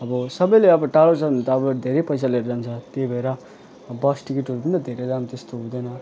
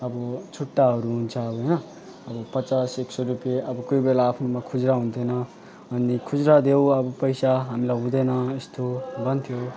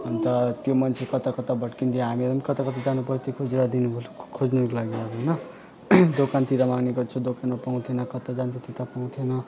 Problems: none marked